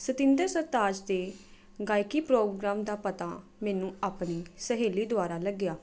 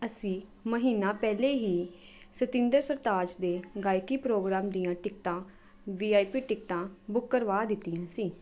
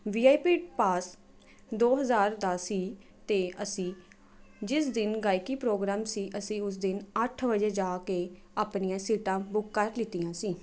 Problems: none marked